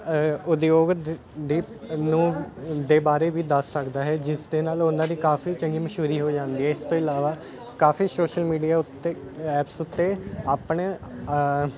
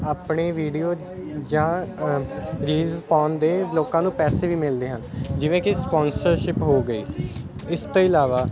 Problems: constant background noise